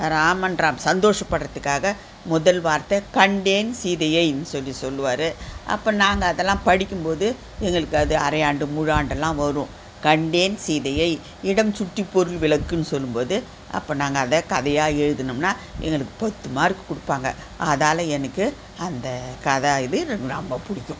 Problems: constant background noise